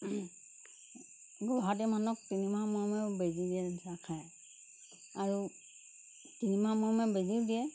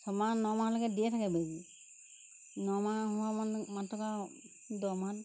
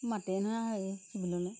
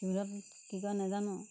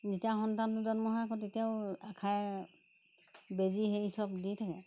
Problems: constant background noise